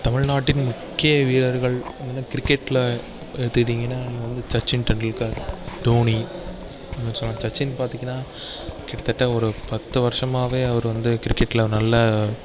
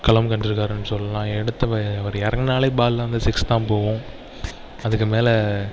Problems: background sounds at intervals